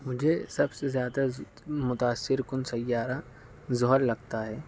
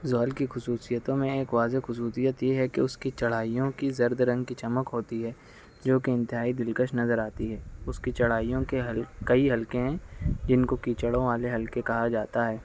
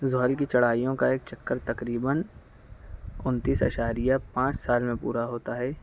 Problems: none marked